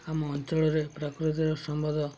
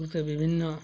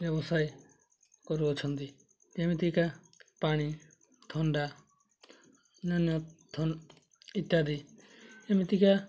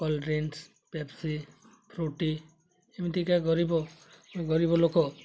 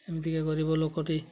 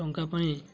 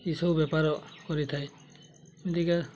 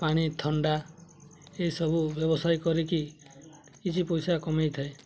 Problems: constant background noise, continuous background conversations